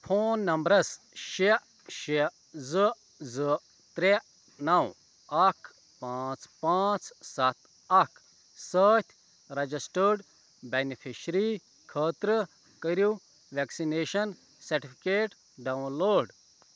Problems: constant background noise